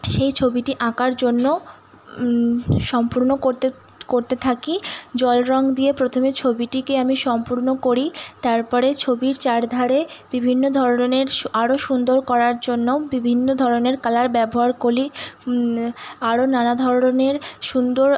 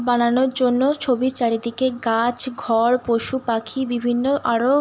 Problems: constant background noise